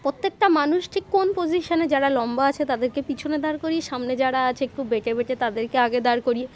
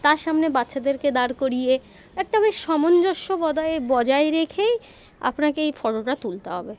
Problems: constant background noise, continuous background conversations